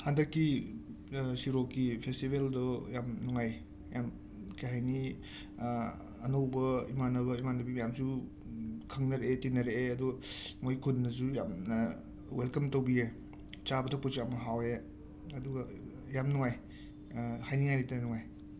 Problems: constant background noise